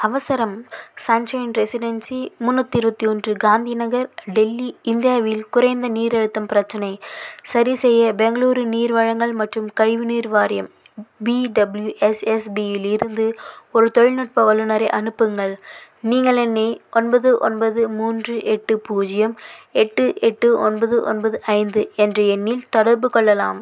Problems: none marked